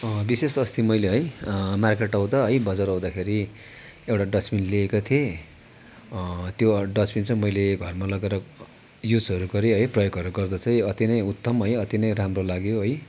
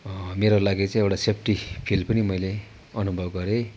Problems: constant background noise